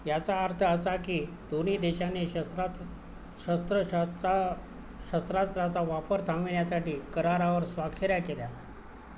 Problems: constant background noise